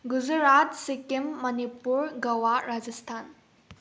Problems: low volume